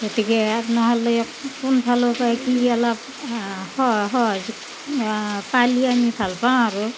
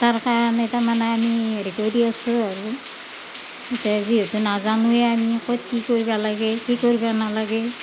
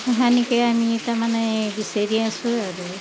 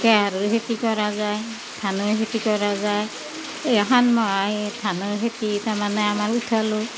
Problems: none marked